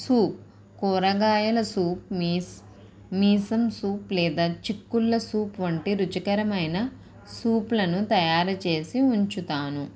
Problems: background sounds at intervals